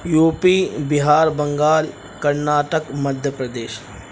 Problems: constant background noise